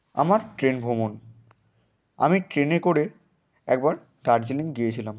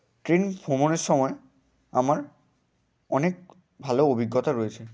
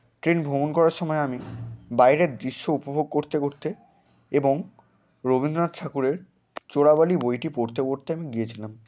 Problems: constant background noise